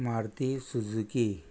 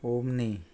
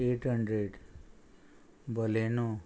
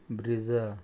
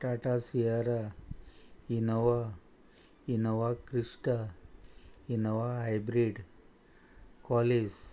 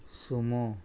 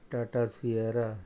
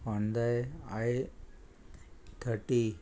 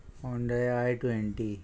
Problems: constant background noise